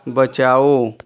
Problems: constant background noise